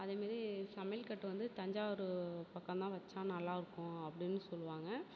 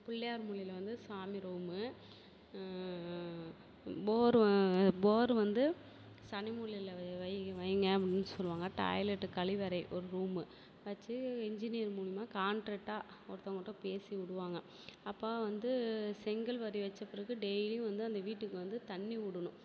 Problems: background sounds at intervals, low volume